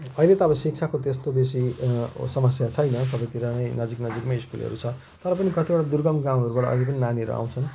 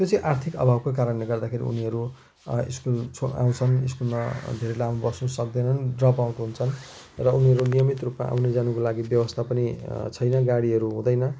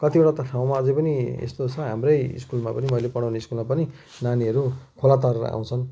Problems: constant background noise